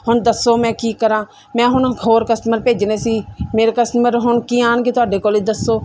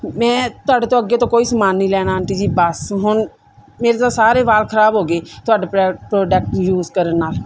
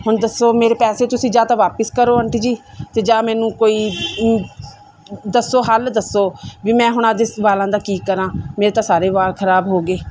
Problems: none marked